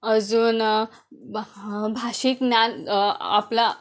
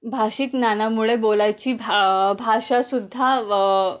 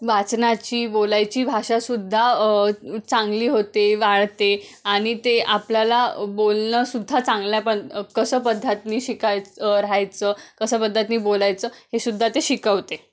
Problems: background sounds at intervals